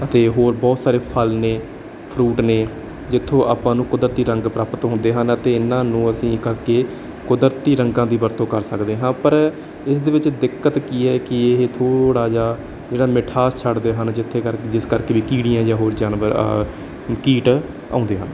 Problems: none marked